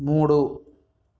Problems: background sounds at intervals